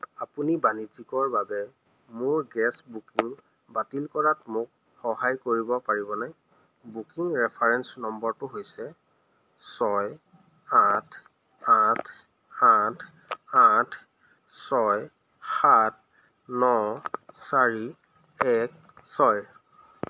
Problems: constant background noise